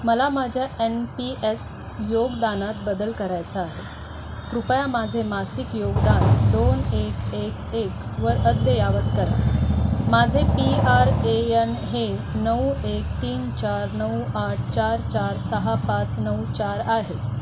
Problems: constant background noise